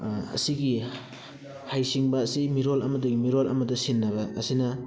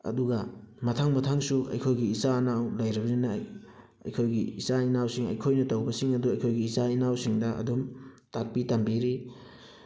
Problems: background sounds at intervals, background conversations at intervals